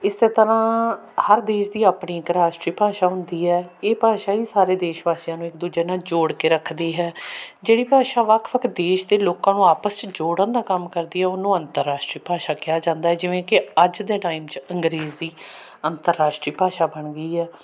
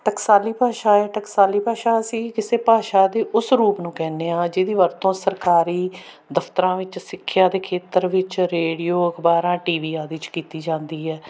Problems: constant background noise